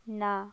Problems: none marked